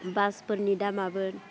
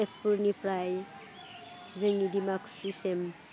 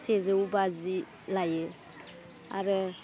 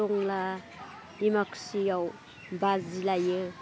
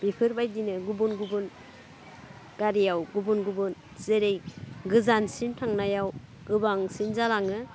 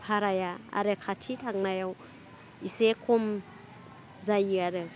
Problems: low volume